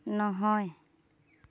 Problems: constant background noise